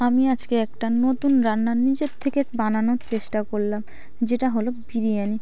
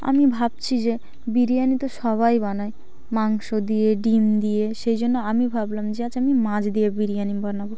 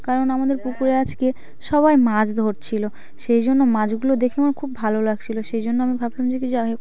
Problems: none marked